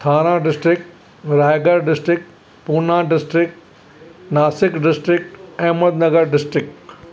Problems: none marked